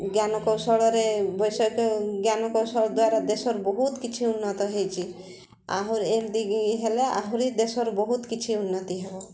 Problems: constant background noise, continuous background conversations